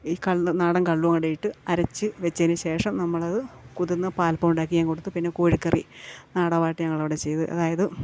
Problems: none marked